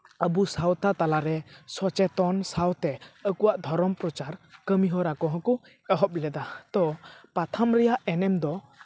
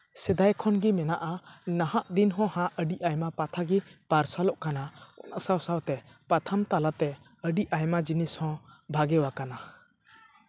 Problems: none marked